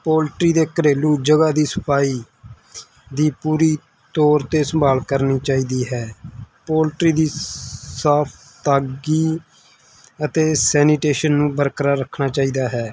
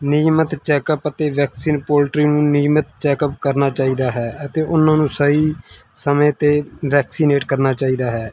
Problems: none marked